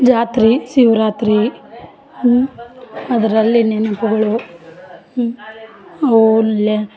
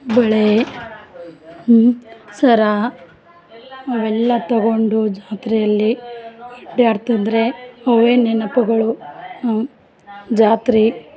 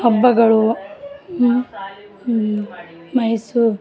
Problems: background sounds at intervals